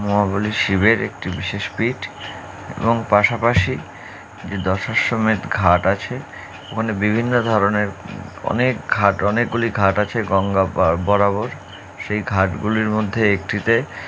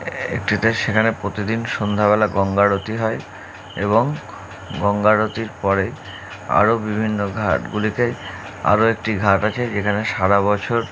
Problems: none marked